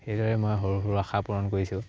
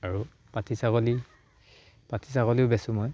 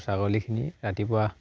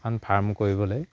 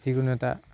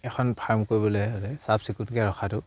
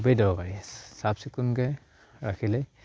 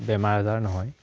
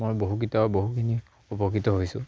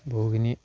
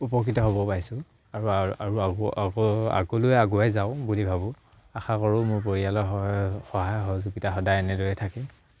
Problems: background sounds at intervals